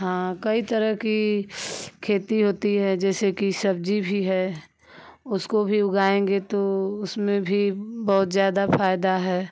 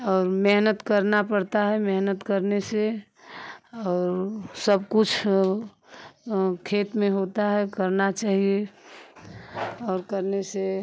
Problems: constant background noise